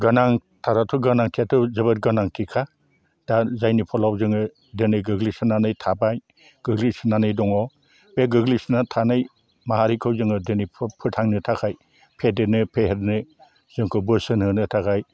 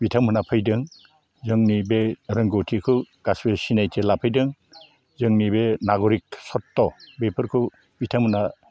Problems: low volume